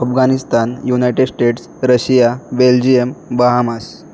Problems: constant background noise